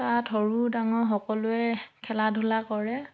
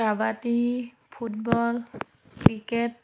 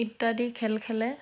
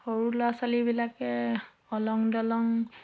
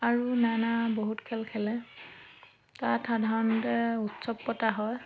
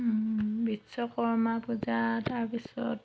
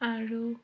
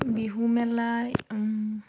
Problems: background sounds at intervals